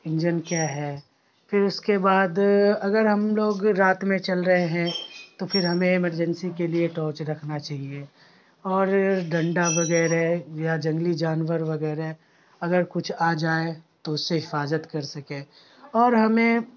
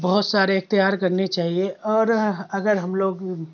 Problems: constant background noise